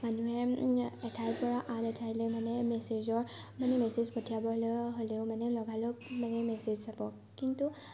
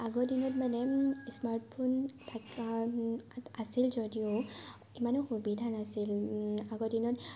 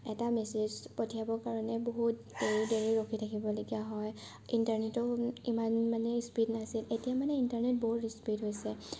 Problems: constant background noise